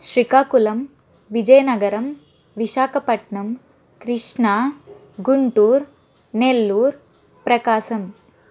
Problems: none marked